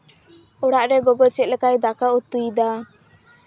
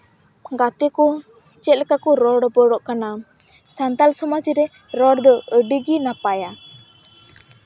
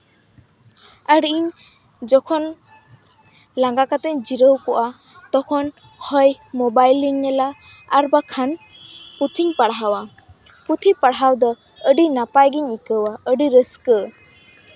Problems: background sounds at intervals